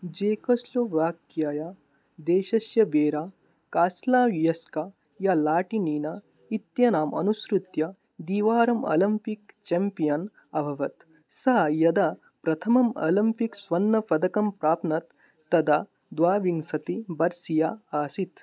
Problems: none marked